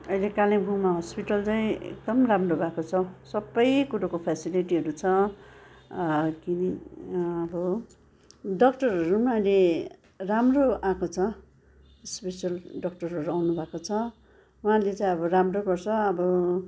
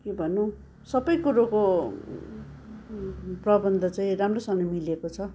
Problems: constant background noise, continuous background conversations